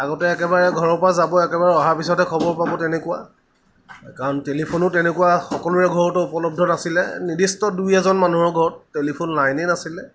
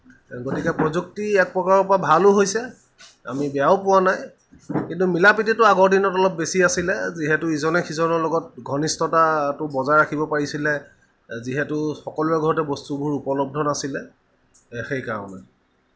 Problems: none marked